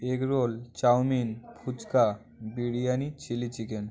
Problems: constant background noise